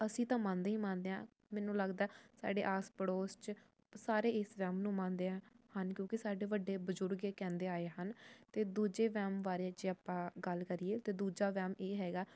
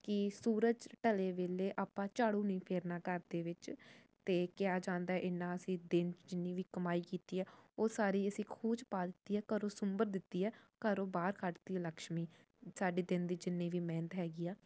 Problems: none marked